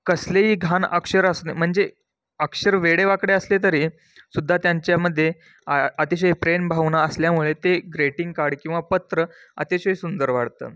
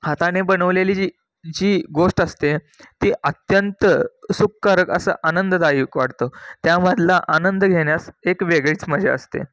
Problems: none marked